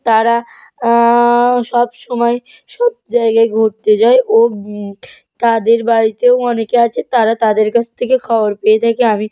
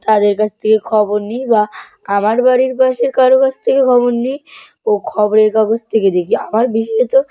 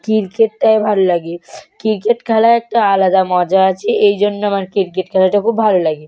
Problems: background conversations at intervals